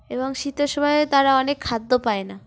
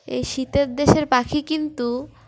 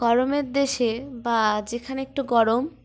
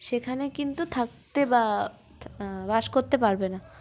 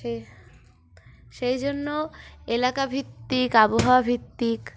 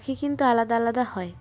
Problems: background sounds at intervals